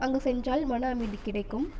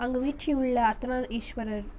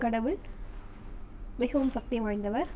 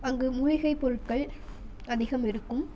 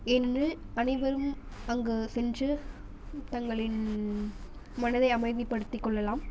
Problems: constant background noise